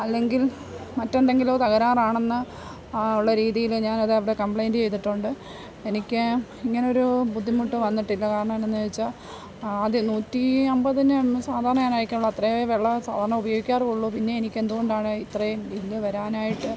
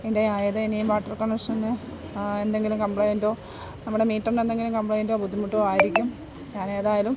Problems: background sounds at intervals